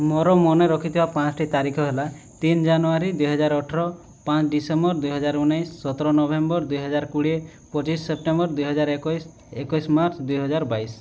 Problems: none marked